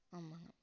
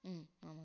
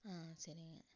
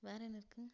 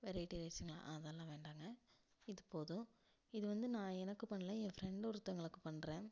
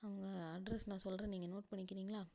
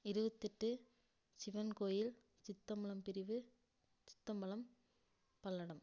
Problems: low volume